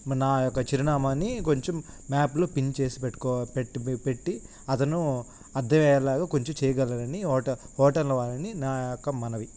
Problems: constant background noise